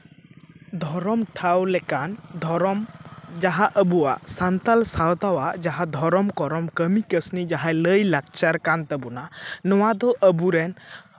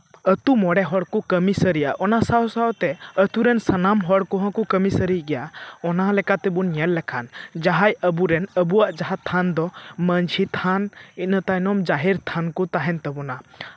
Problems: none marked